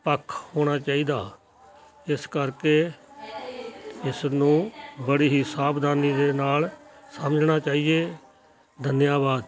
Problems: continuous background conversations